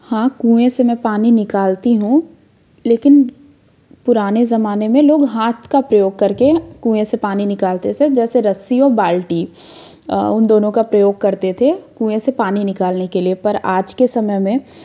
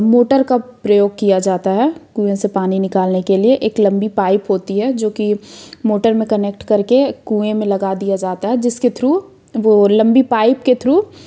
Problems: background sounds at intervals